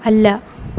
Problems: background sounds at intervals